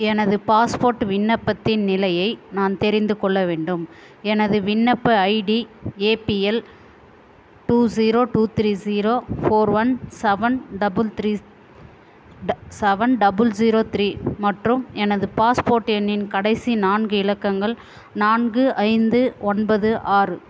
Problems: constant background noise, background conversations at intervals